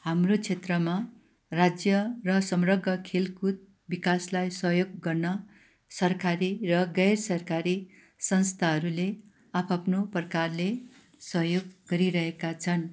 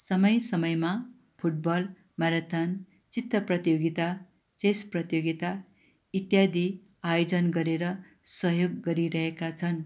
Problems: background sounds at intervals